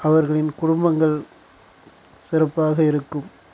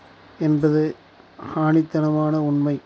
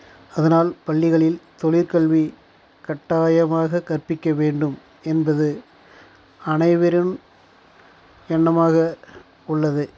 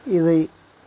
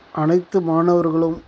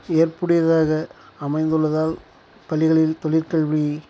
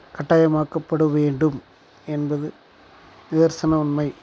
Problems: background sounds at intervals